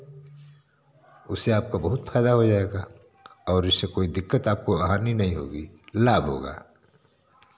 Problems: constant background noise